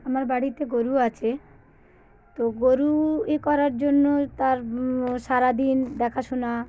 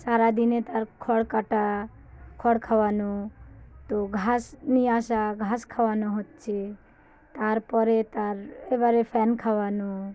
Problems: constant background noise, background conversations at intervals